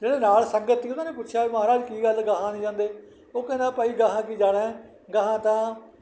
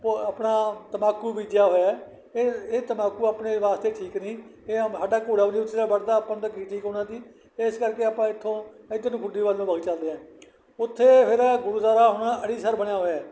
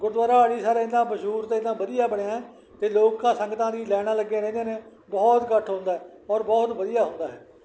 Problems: background sounds at intervals